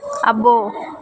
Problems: constant background noise, continuous background conversations